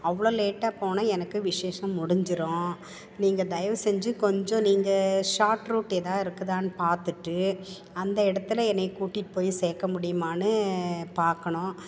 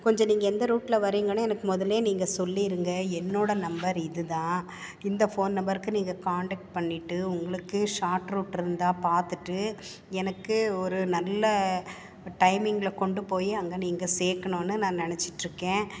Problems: background sounds at intervals